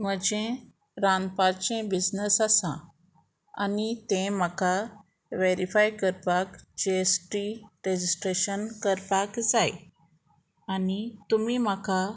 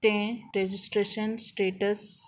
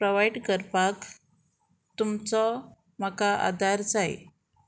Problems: none marked